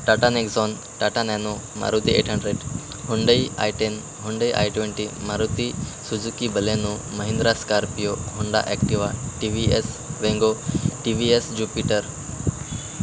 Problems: constant background noise